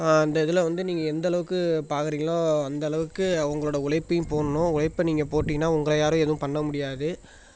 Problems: background conversations at intervals